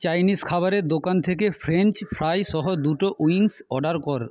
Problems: background conversations at intervals